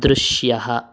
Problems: none marked